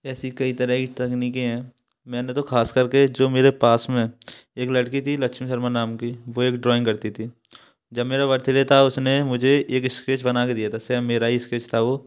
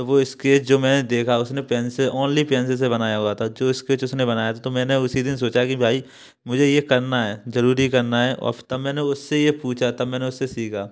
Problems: background sounds at intervals